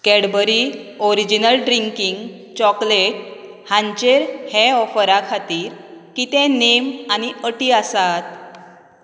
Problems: background sounds at intervals